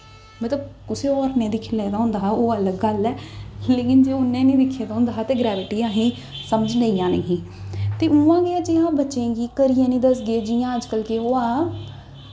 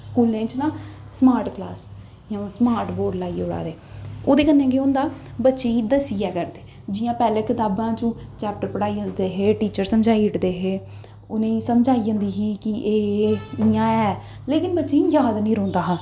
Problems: echo